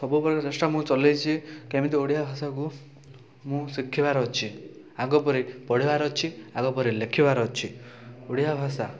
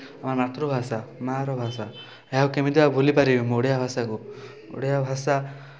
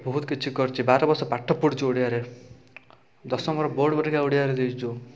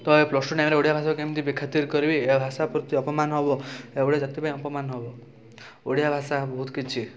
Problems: none marked